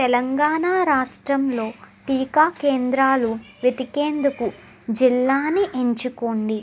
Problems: background conversations at intervals